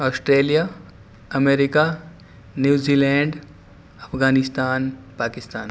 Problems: constant background noise